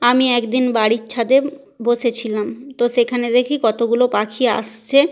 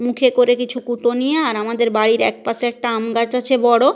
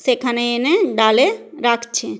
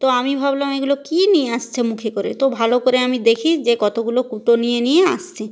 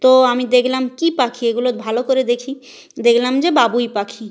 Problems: none marked